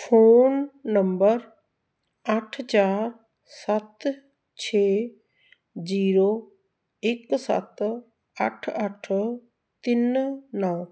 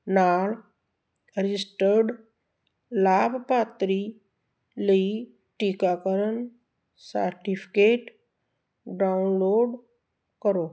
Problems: none marked